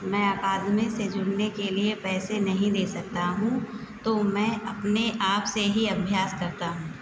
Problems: constant background noise, continuous background conversations